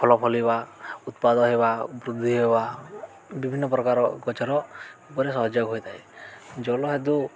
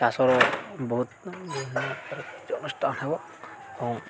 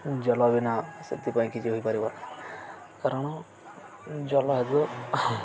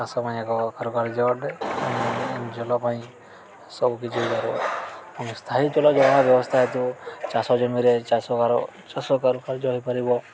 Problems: constant background noise, continuous background conversations